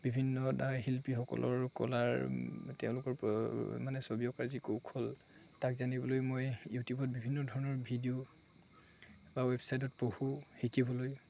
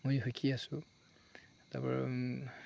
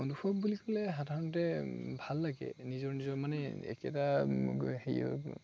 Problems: constant background noise, background conversations at intervals